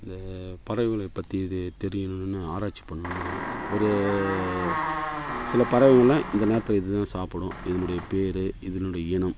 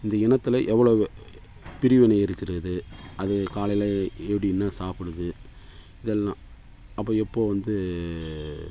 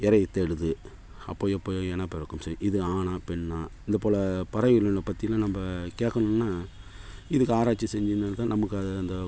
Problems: background sounds at intervals